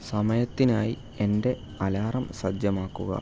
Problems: none marked